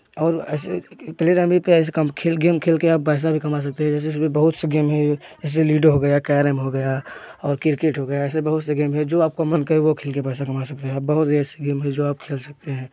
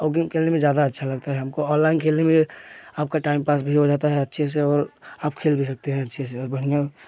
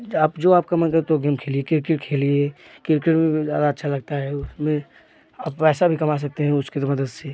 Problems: background sounds at intervals, continuous background conversations